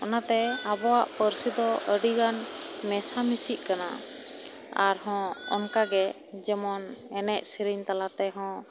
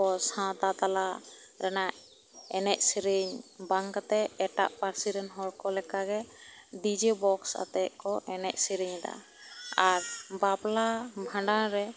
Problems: background sounds at intervals